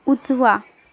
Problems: none marked